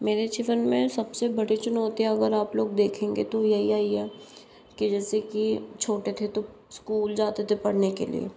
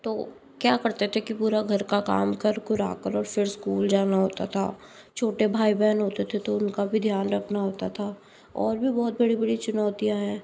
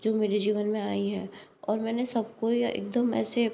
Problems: none marked